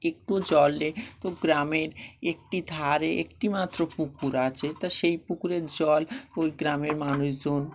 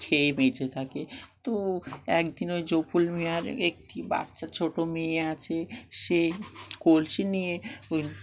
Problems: none marked